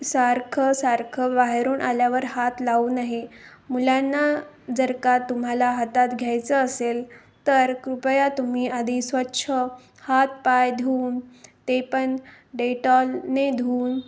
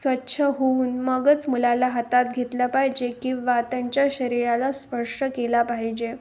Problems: constant background noise